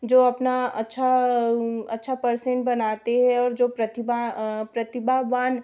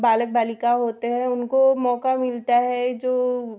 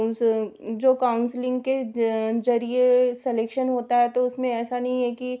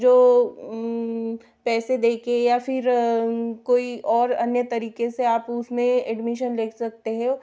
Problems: background sounds at intervals